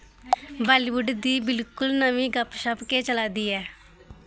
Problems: none marked